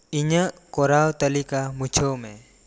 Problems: constant background noise